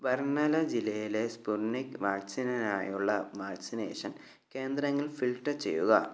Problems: low volume